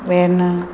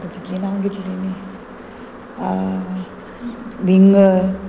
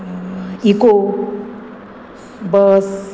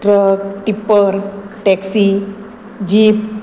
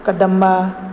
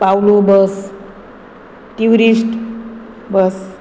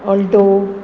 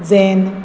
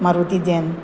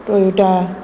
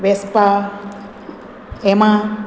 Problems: constant background noise